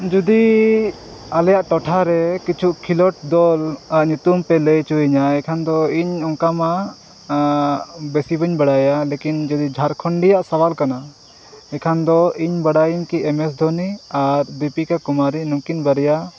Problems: none marked